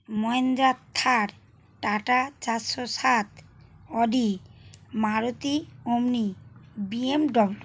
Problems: none marked